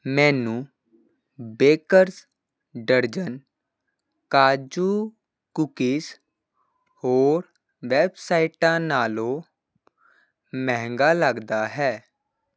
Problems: constant background noise